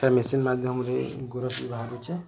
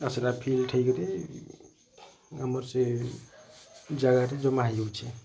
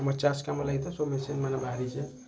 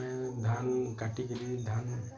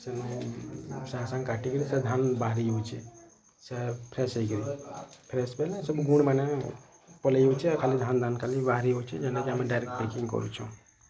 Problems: constant background noise, continuous background conversations